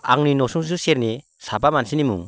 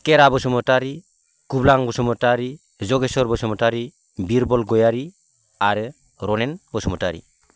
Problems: constant background noise